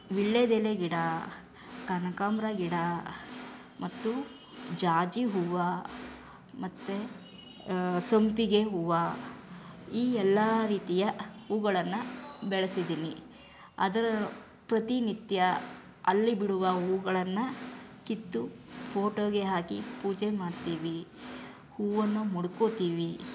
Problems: background sounds at intervals